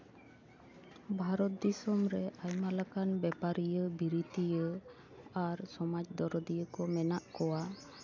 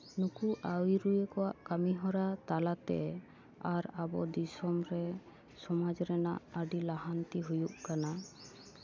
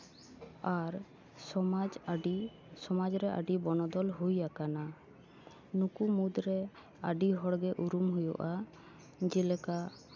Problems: none marked